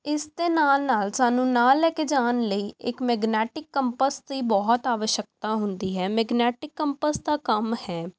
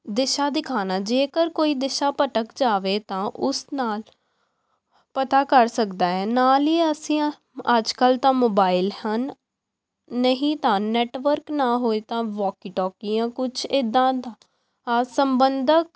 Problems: background sounds at intervals